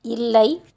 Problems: none marked